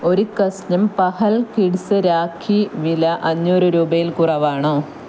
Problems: constant background noise